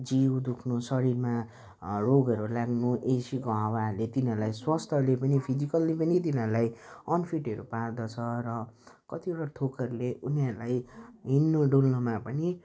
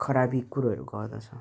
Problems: none marked